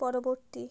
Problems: none marked